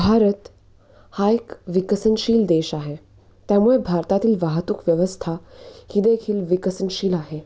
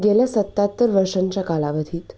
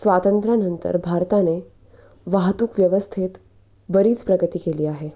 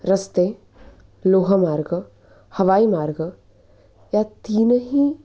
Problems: background sounds at intervals